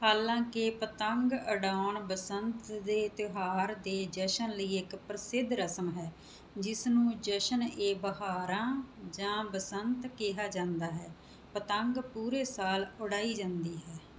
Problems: background sounds at intervals